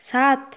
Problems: low volume